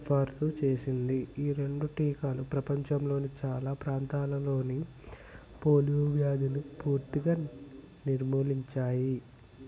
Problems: constant background noise, background conversations at intervals, low volume